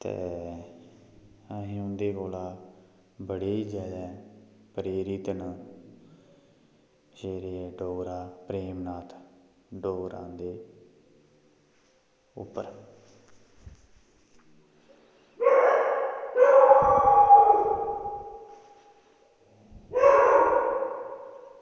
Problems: background sounds at intervals